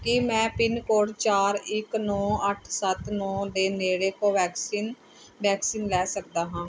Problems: none marked